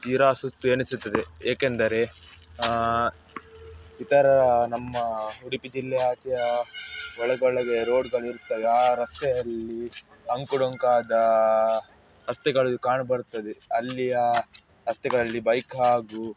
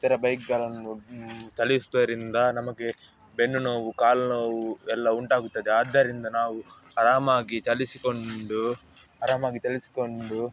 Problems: background sounds at intervals, background conversations at intervals